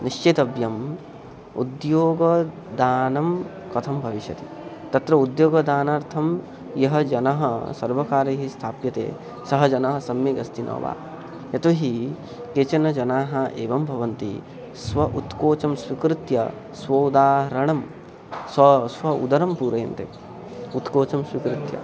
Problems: constant background noise